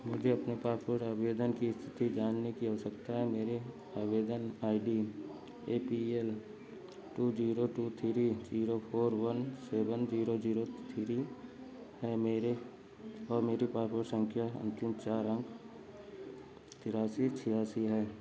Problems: constant background noise, background conversations at intervals